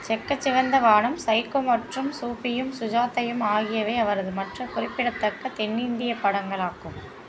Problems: constant background noise